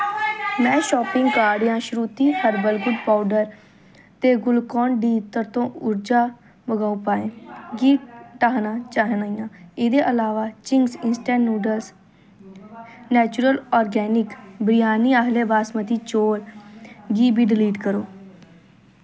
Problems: constant background noise, background conversations at intervals